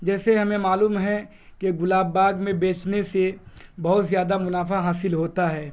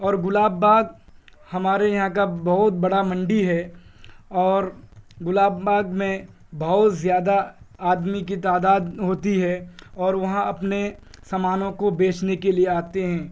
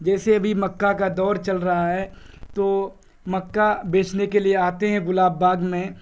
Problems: constant background noise